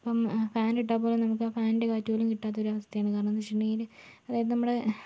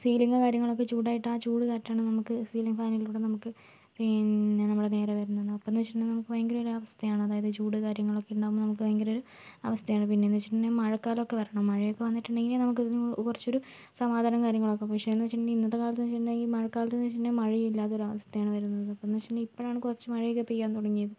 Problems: low volume